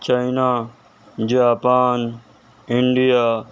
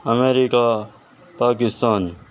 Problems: constant background noise